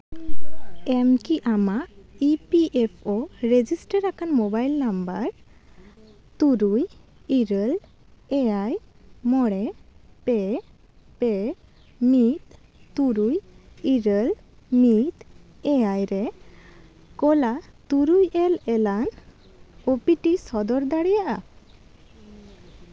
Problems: constant background noise, background conversations at intervals